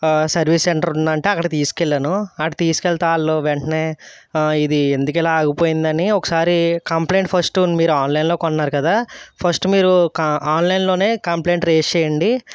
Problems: none marked